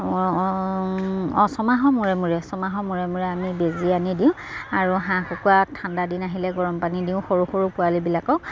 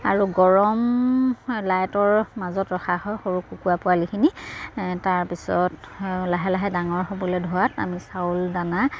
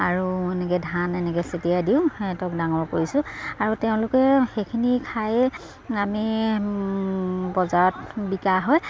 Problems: none marked